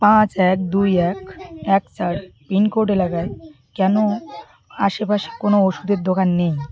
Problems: continuous background conversations